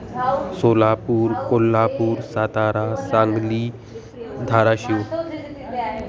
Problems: continuous background conversations